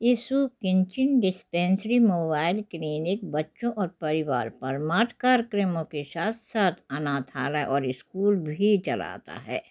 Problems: background sounds at intervals